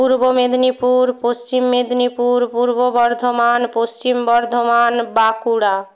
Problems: none marked